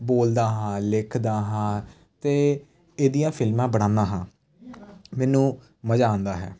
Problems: none marked